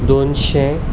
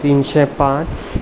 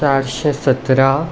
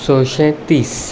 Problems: constant background noise